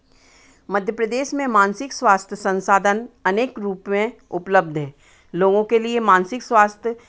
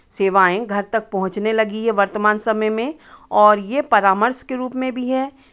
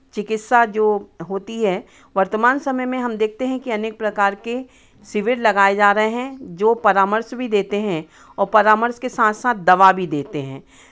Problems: none marked